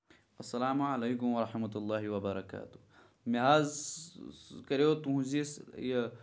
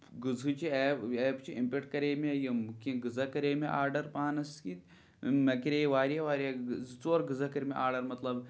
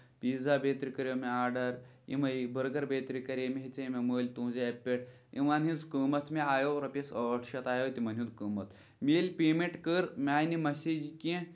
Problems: none marked